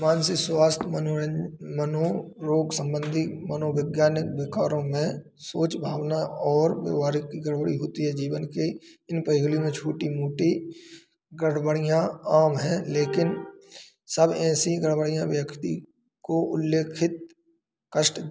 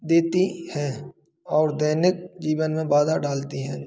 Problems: constant background noise